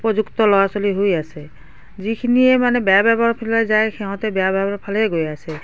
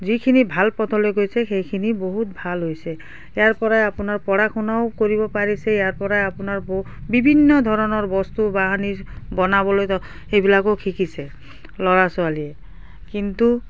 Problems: background sounds at intervals